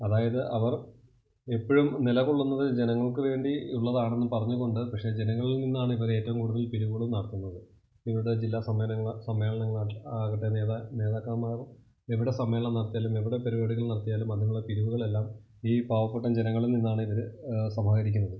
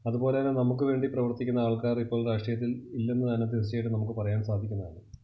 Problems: constant background noise, low volume